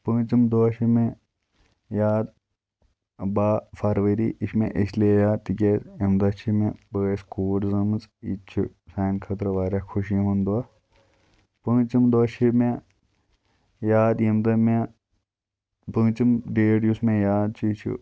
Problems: constant background noise